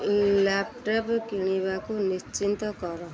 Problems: constant background noise, continuous background conversations